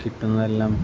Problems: none marked